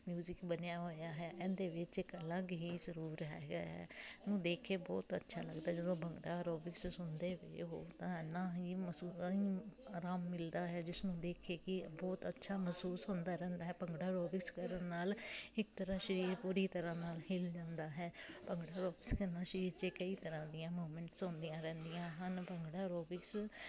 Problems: constant background noise, continuous background conversations